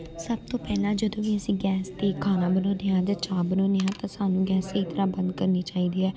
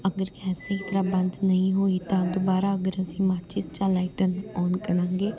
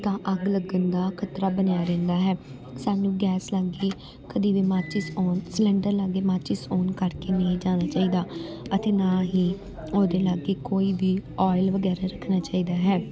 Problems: continuous background conversations